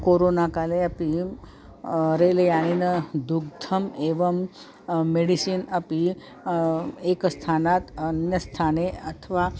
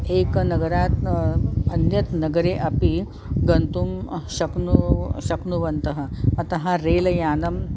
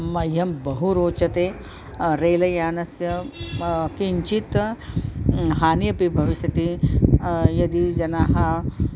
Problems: none marked